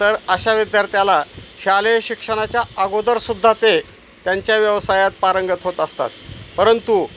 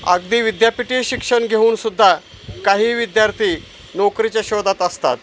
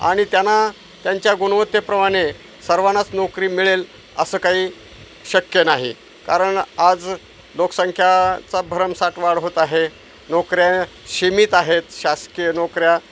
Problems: none marked